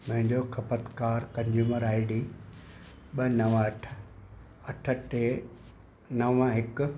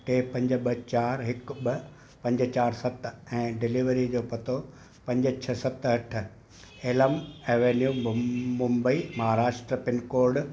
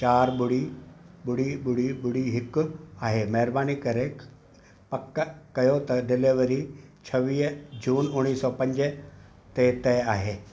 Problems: constant background noise, echo